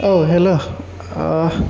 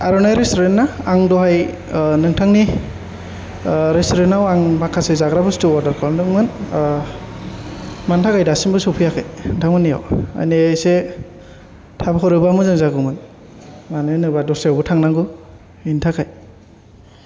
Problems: low volume